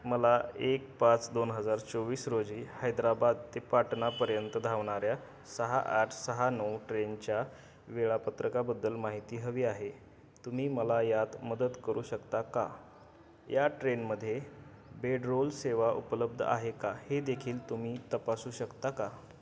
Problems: constant background noise, background conversations at intervals